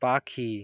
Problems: none marked